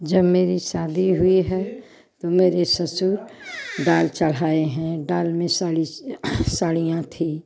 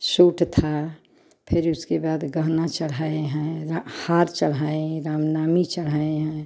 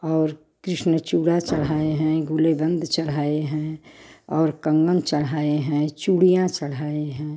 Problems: background sounds at intervals